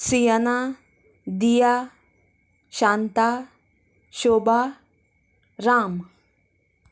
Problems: none marked